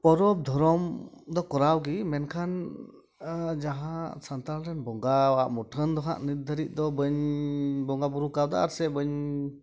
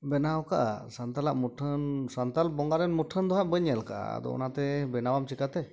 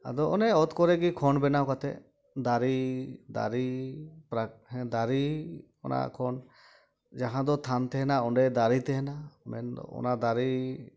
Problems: background sounds at intervals